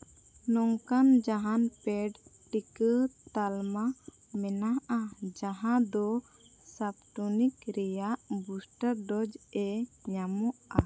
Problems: background sounds at intervals